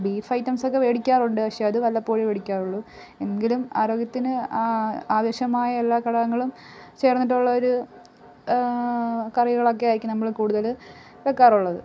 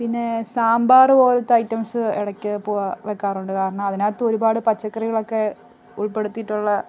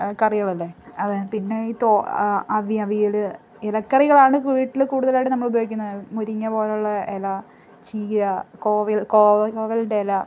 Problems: background sounds at intervals